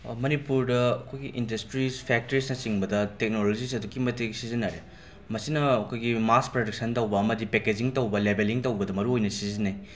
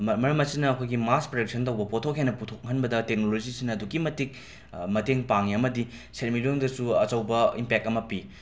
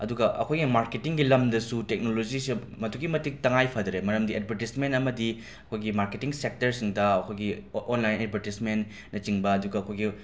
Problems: background sounds at intervals